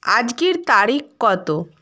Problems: none marked